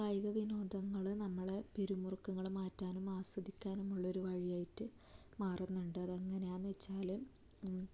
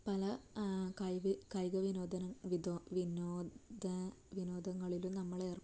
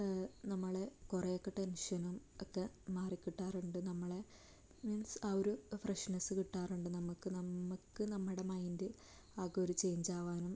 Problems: low volume